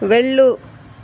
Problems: constant background noise